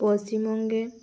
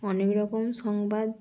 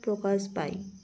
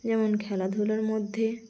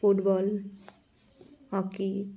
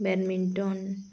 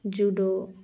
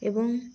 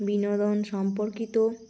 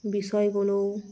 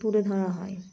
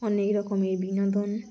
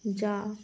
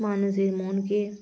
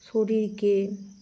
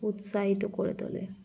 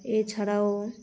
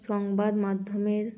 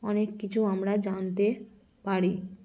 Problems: none marked